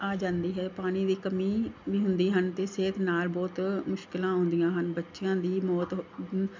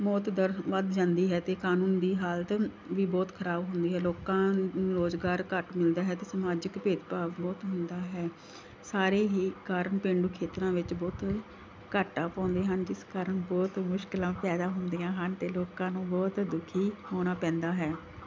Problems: background sounds at intervals